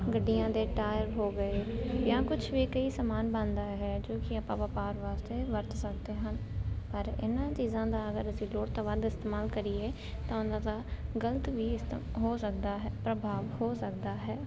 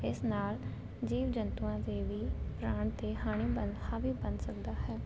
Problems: constant background noise